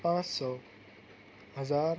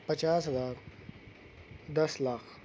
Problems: none marked